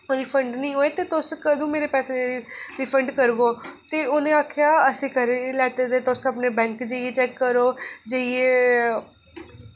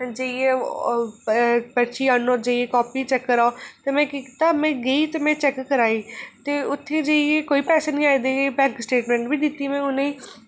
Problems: constant background noise